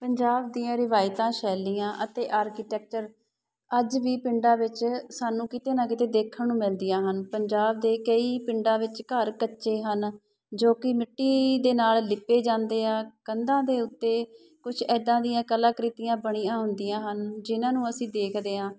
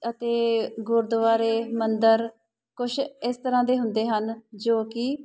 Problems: background sounds at intervals